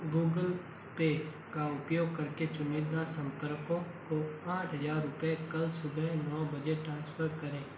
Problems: constant background noise, low volume